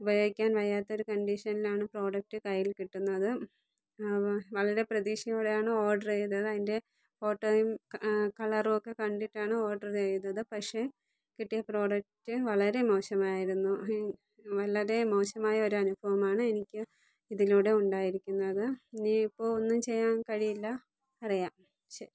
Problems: low volume